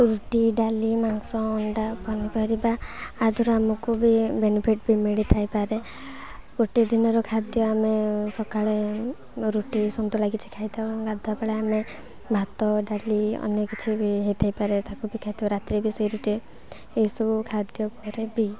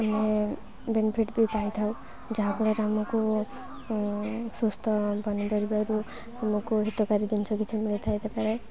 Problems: constant background noise